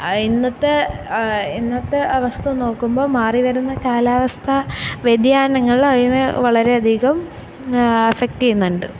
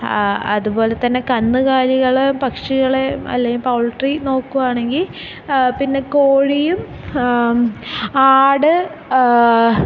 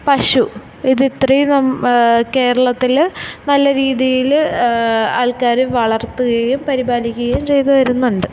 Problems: none marked